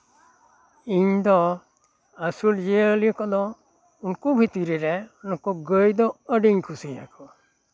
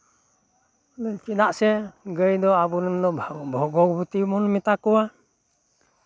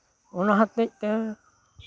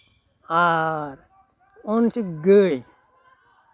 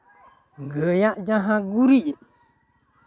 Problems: background conversations at intervals